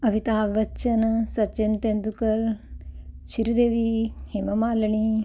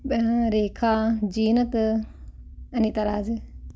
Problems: none marked